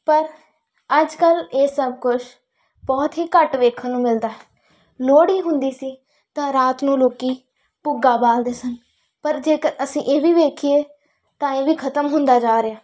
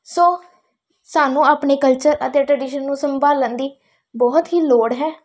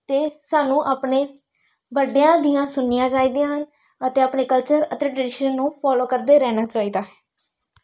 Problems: background sounds at intervals